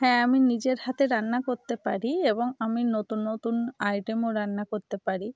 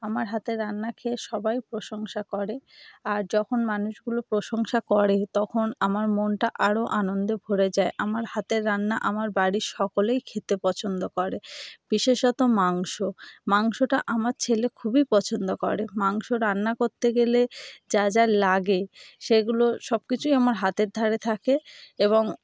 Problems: background sounds at intervals